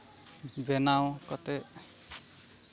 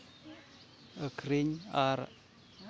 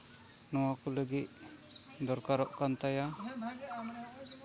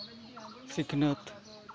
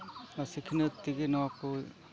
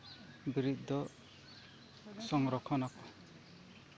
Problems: background sounds at intervals, low volume